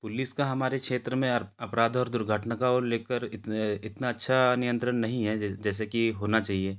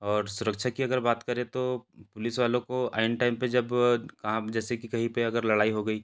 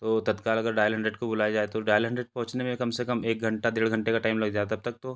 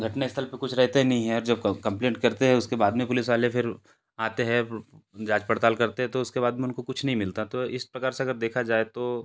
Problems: background sounds at intervals